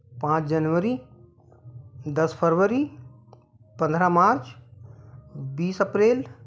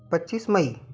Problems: constant background noise